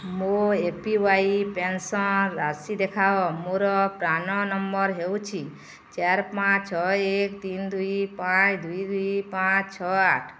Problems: background sounds at intervals